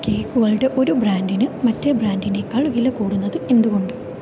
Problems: none marked